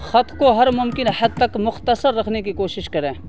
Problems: constant background noise